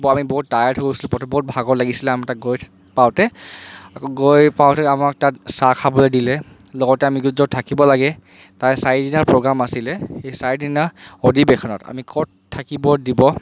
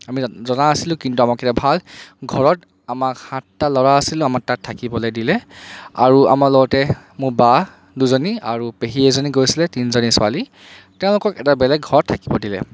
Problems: constant background noise